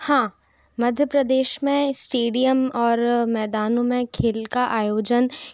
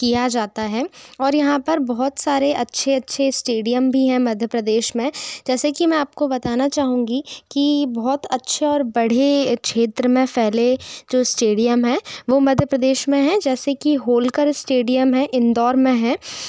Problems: constant background noise